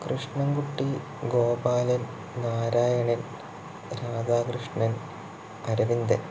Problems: low volume